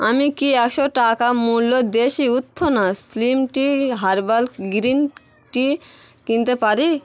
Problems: constant background noise, background conversations at intervals